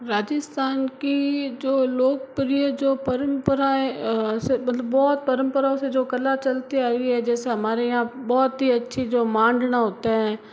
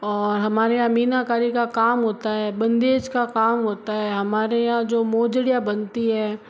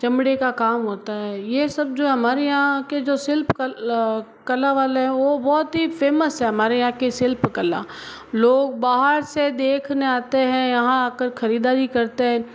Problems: background sounds at intervals